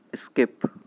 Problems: none marked